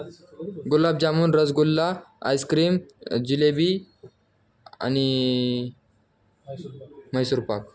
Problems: background conversations at intervals